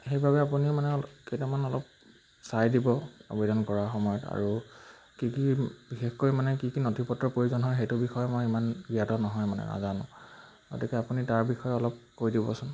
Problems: none marked